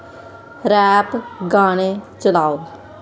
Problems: constant background noise